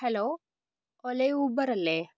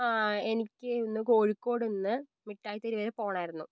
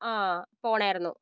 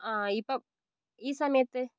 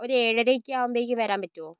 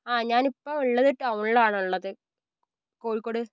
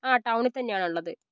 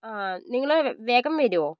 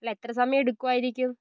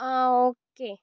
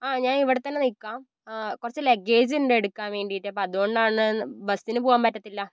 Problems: low volume